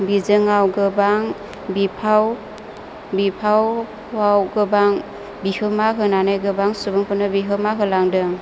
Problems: low volume